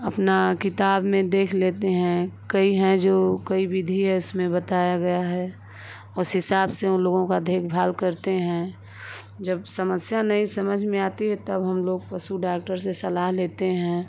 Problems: constant background noise